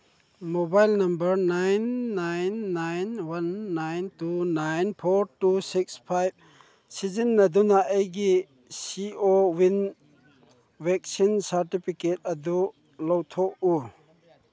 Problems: background conversations at intervals